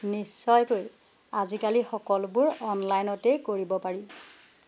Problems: none marked